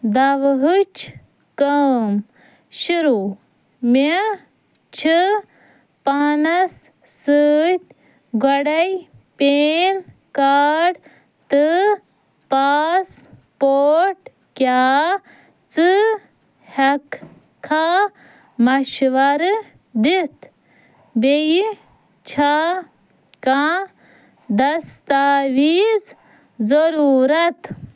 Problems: none marked